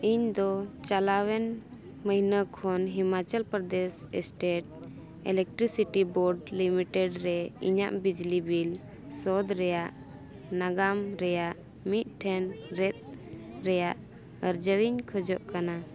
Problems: continuous background conversations